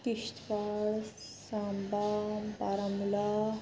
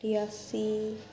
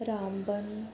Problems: constant background noise